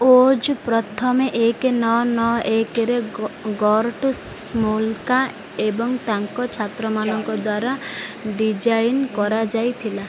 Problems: background sounds at intervals